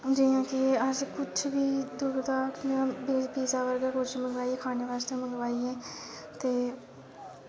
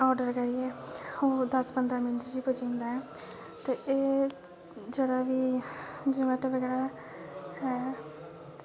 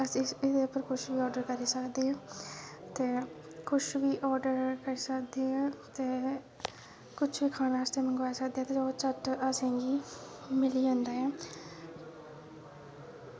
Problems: constant background noise